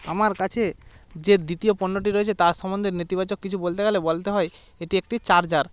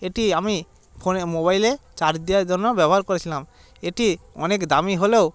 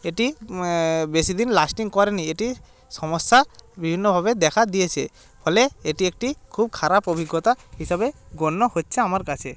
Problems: constant background noise